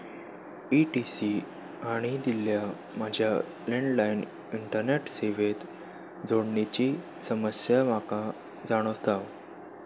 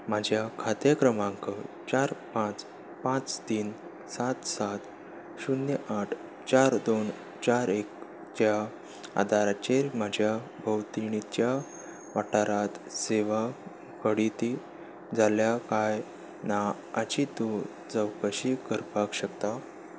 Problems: background sounds at intervals